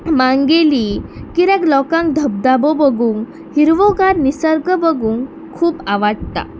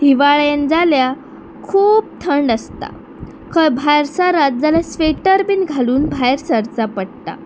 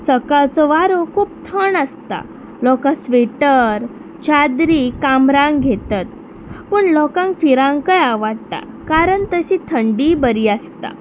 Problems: constant background noise